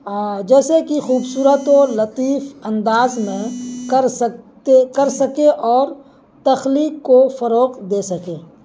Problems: constant background noise